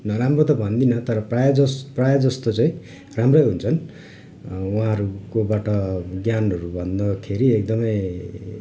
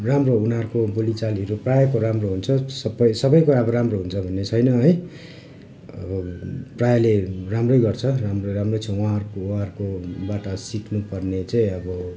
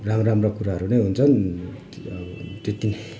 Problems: none marked